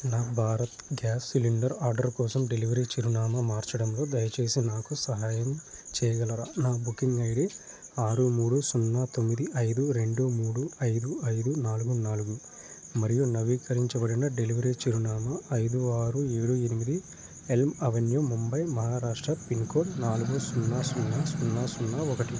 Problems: constant background noise